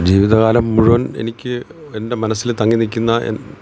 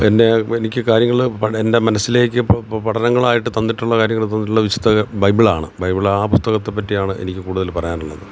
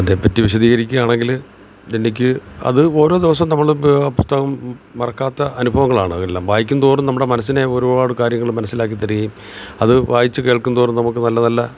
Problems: constant background noise